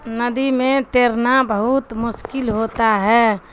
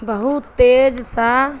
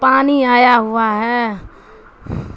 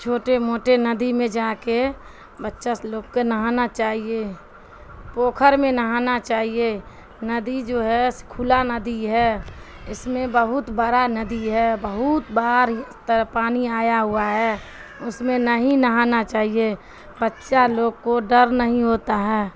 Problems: constant background noise